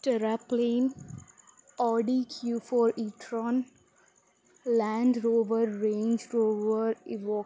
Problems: none marked